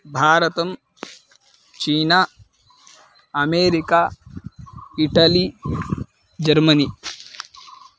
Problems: constant background noise